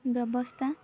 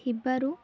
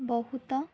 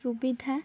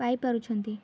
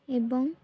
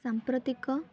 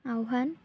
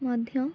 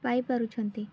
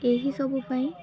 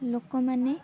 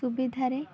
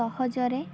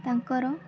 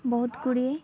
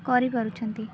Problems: background sounds at intervals, background conversations at intervals